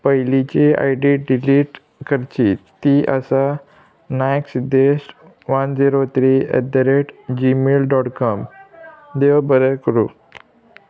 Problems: none marked